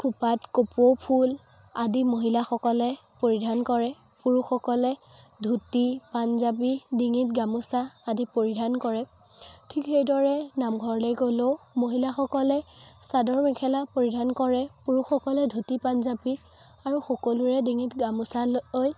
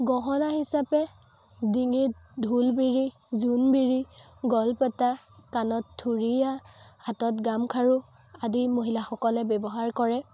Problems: constant background noise, background conversations at intervals